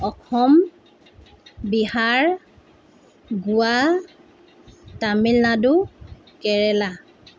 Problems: constant background noise